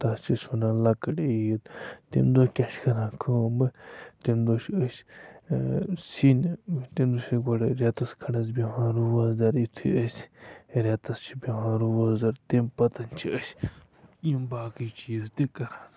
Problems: constant background noise, low volume